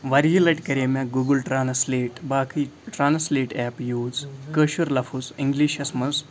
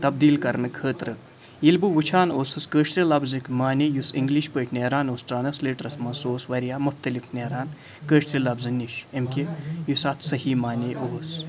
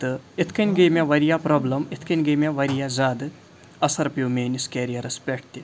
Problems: background sounds at intervals